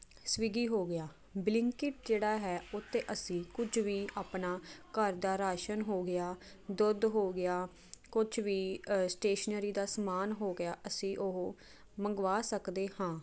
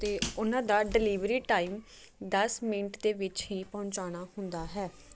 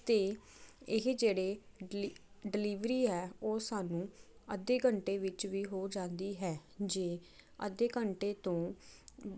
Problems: constant background noise